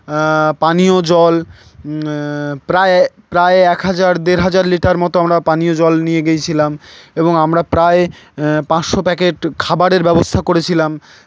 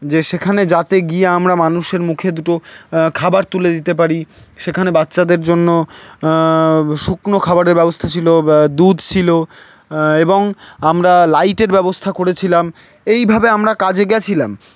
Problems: none marked